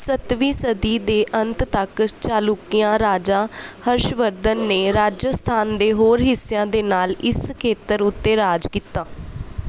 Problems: background sounds at intervals